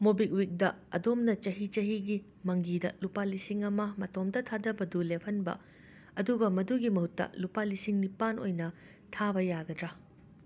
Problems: background sounds at intervals